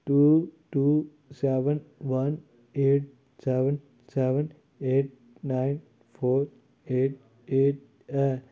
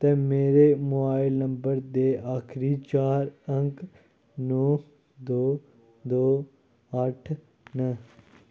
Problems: low volume